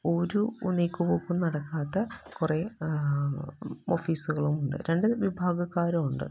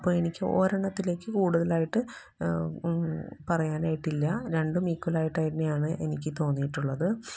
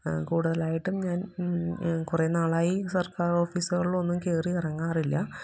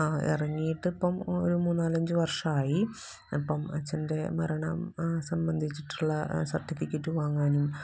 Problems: background sounds at intervals, low volume